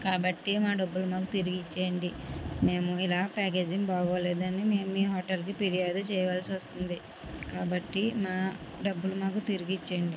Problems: constant background noise